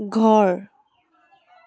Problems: none marked